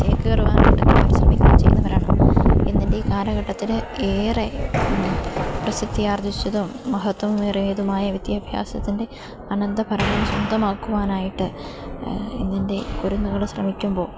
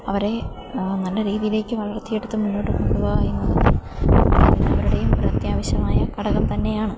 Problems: background sounds at intervals